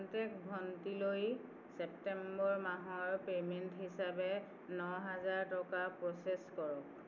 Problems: constant background noise